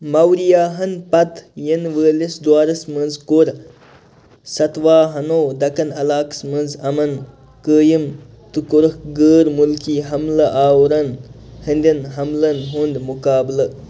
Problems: none marked